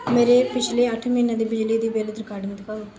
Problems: background conversations at intervals